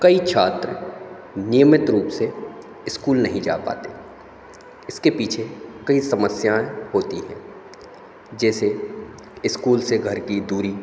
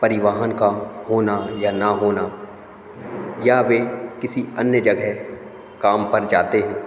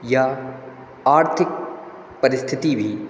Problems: constant background noise